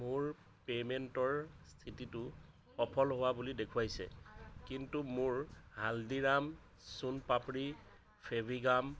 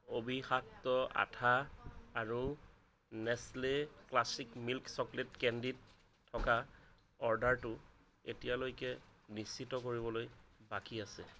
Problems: none marked